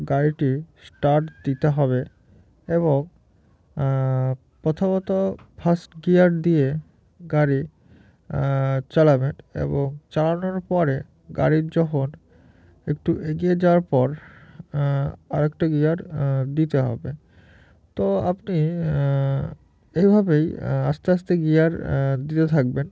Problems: none marked